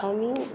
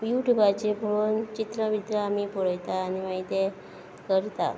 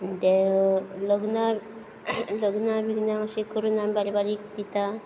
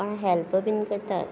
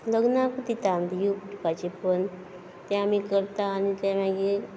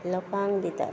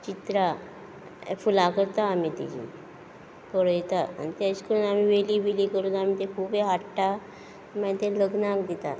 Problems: background sounds at intervals